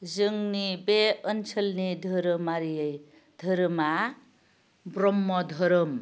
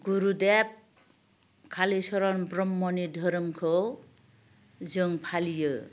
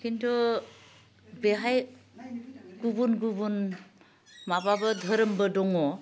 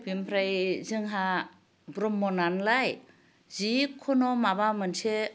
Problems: low volume